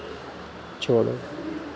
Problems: none marked